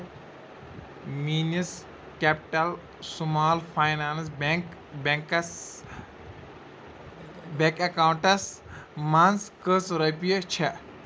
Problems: none marked